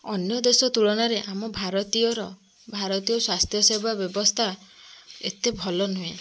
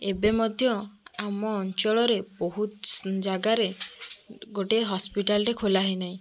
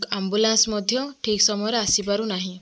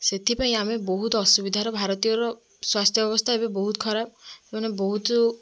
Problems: background sounds at intervals, background conversations at intervals